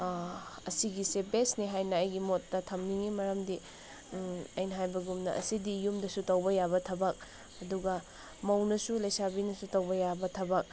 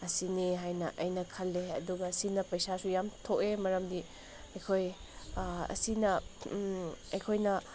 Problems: none marked